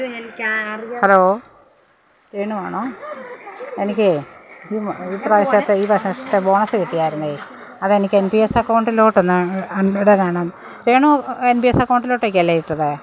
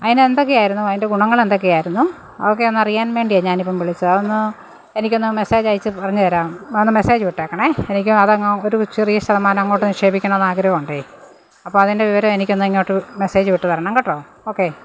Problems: background sounds at intervals